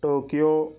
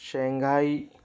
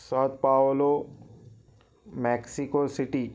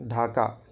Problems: none marked